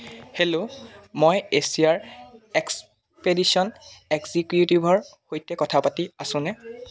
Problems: background conversations at intervals